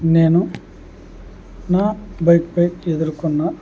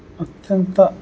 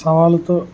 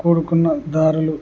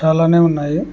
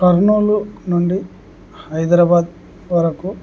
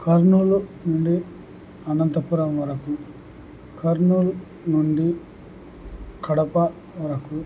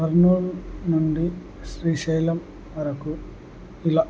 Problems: none marked